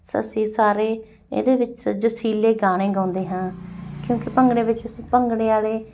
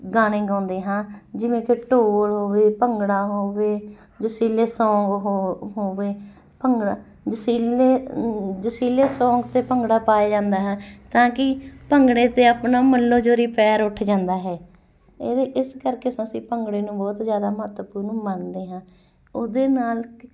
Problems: background sounds at intervals